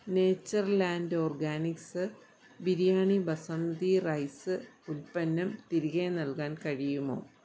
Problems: none marked